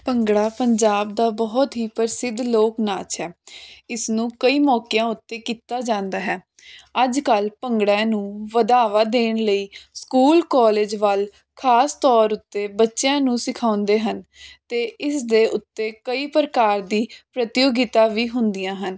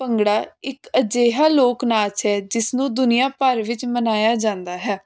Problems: constant background noise